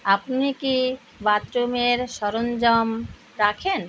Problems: constant background noise